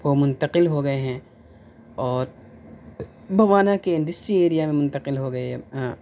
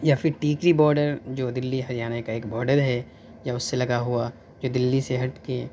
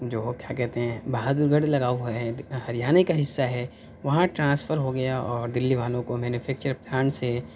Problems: none marked